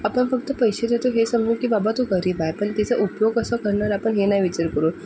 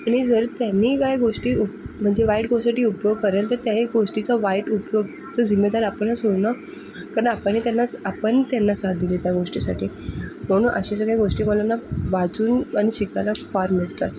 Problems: none marked